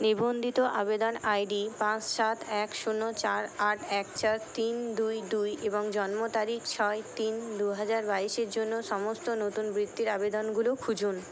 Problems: constant background noise, background conversations at intervals